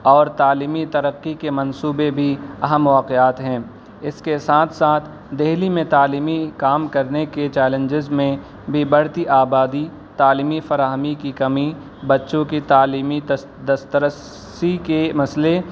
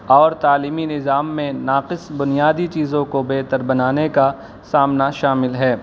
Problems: constant background noise